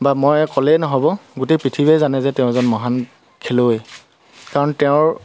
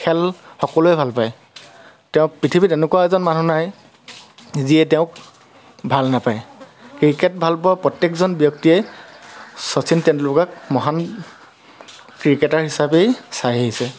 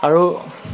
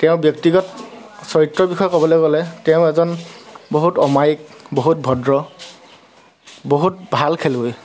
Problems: constant background noise, background conversations at intervals